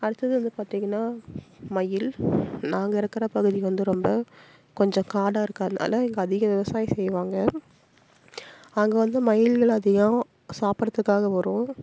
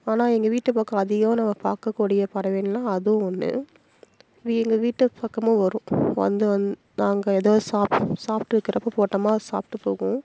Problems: none marked